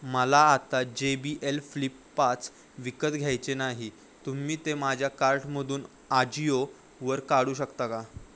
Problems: none marked